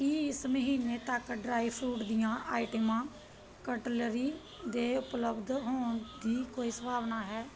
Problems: continuous background conversations